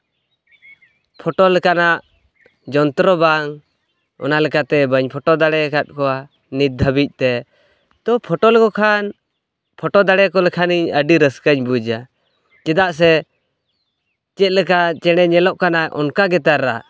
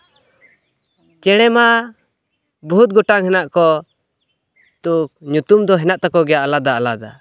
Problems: background sounds at intervals